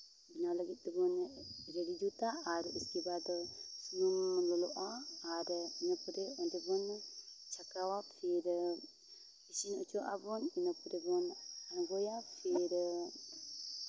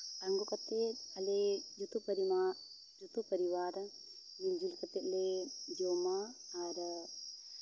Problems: background sounds at intervals